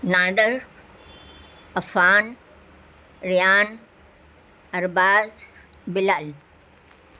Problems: constant background noise